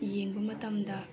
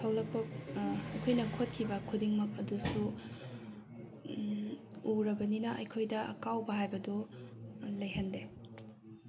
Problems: none marked